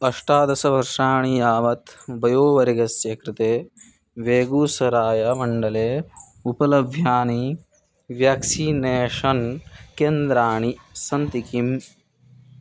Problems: background sounds at intervals